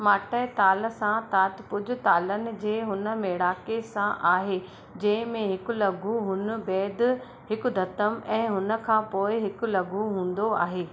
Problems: constant background noise